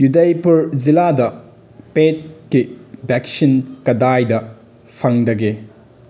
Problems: background sounds at intervals